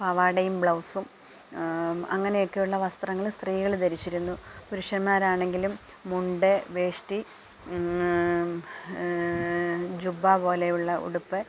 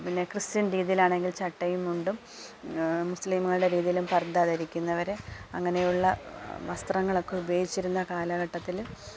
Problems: none marked